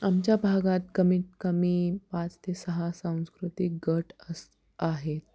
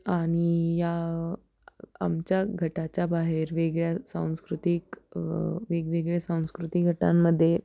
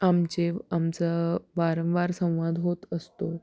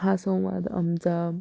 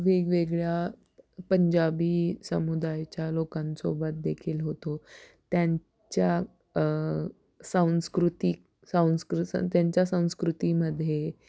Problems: background sounds at intervals